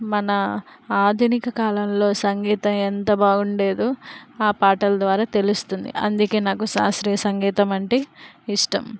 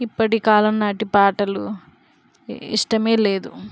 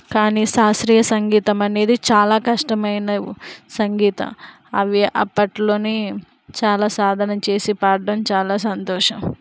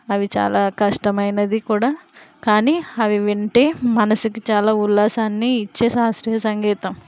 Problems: constant background noise